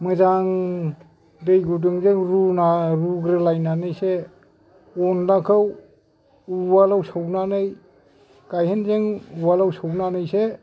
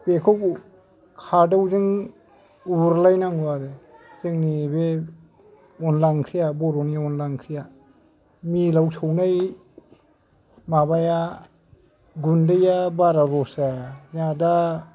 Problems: none marked